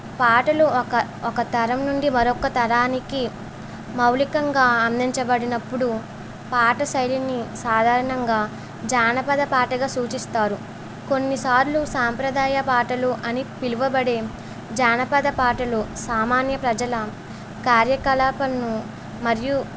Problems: constant background noise